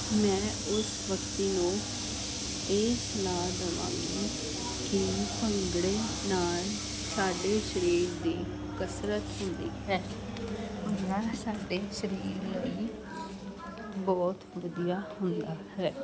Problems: constant background noise